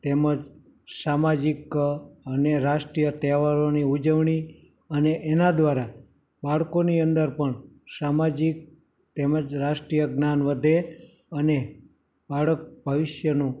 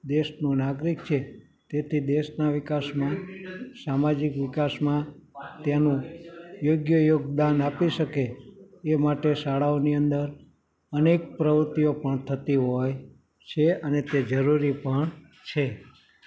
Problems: continuous background conversations